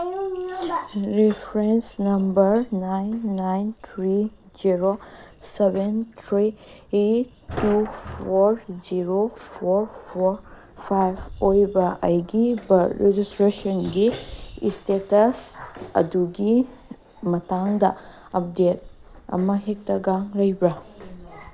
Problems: background conversations at intervals